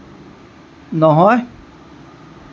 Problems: constant background noise